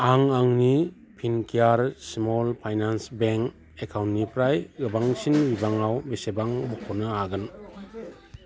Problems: constant background noise